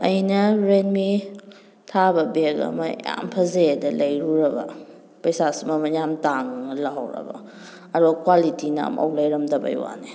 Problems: constant background noise